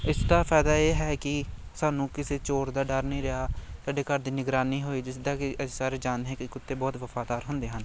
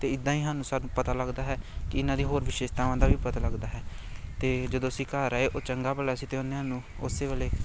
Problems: constant background noise